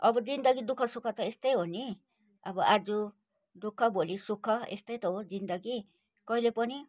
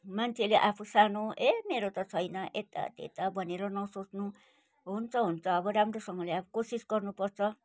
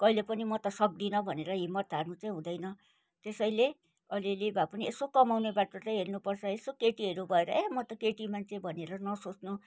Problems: none marked